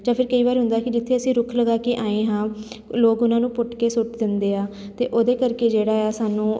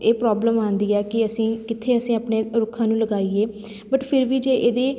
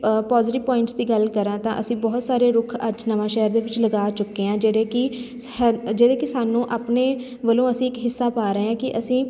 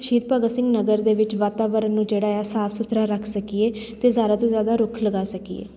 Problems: none marked